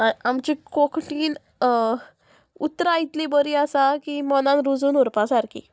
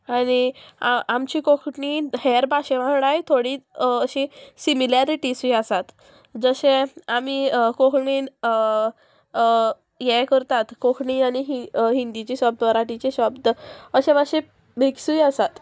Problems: constant background noise